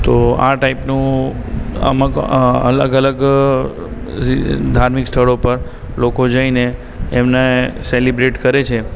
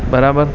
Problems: constant background noise, background conversations at intervals